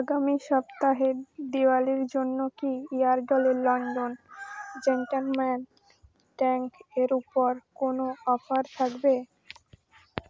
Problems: constant background noise